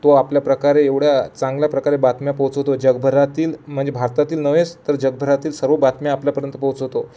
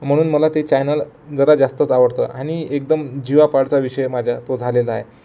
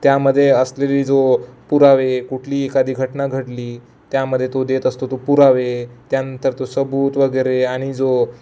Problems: none marked